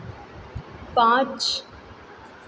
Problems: constant background noise, echo